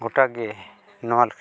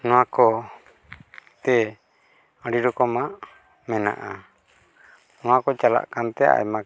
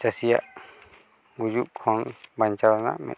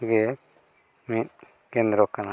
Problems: constant background noise, background conversations at intervals